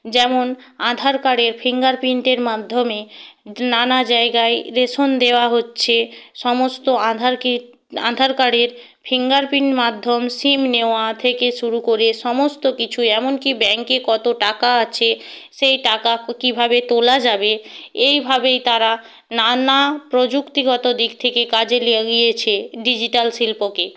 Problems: none marked